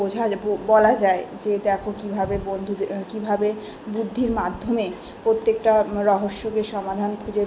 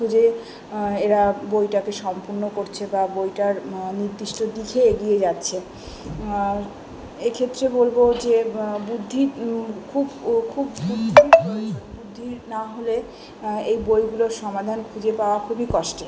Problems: background sounds at intervals, continuous background conversations